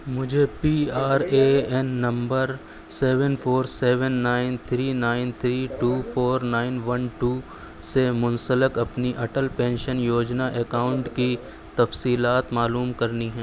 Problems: constant background noise